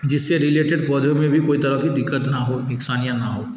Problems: background sounds at intervals